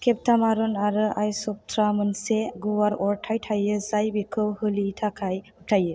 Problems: none marked